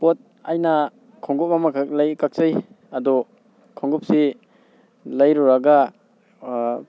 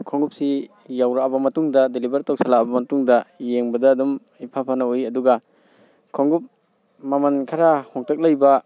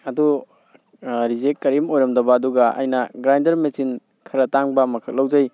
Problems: none marked